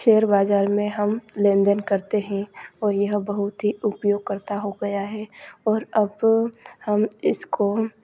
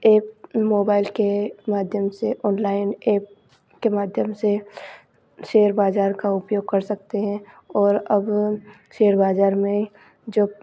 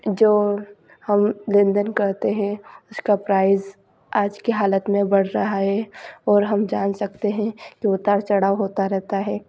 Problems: constant background noise